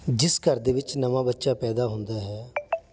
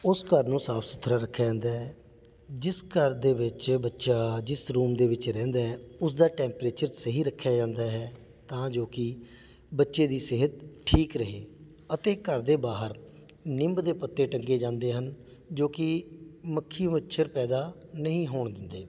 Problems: none marked